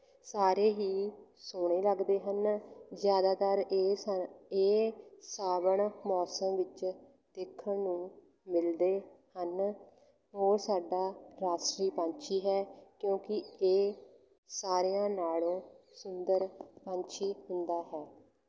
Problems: none marked